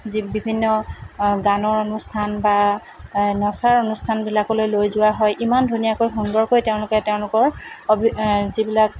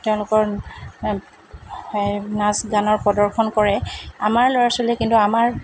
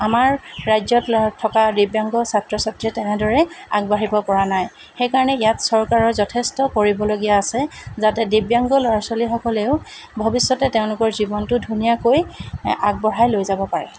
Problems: constant background noise